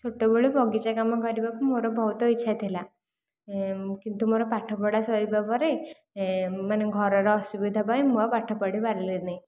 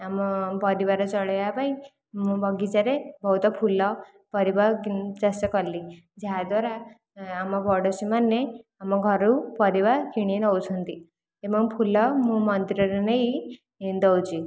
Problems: none marked